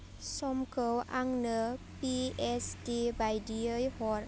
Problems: constant background noise